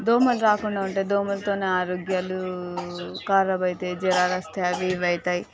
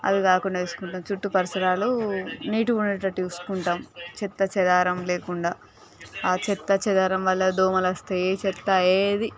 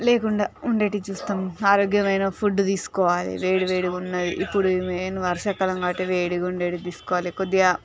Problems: continuous background conversations